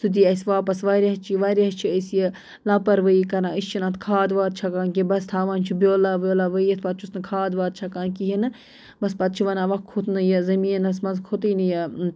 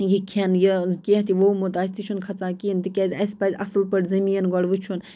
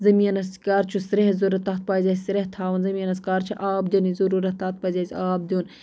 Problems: none marked